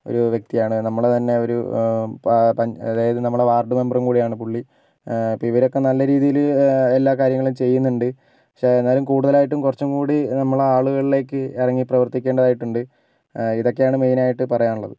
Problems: none marked